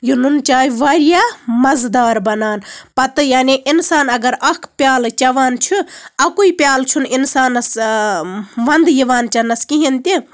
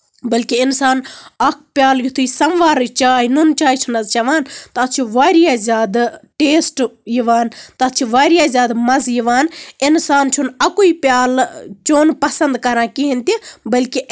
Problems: background sounds at intervals